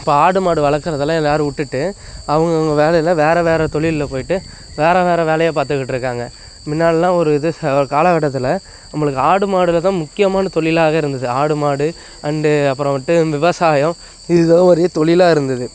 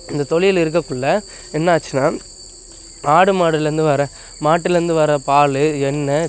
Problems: constant background noise